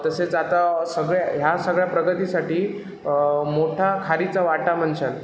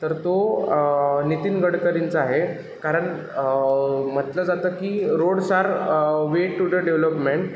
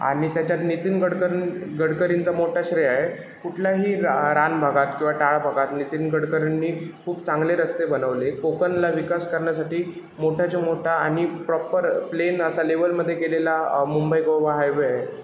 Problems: constant background noise